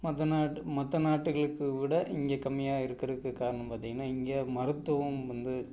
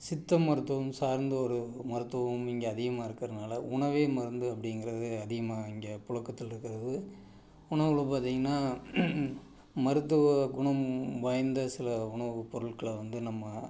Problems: none marked